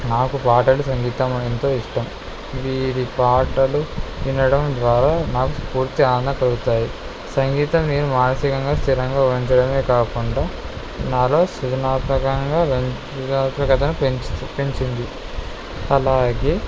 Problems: none marked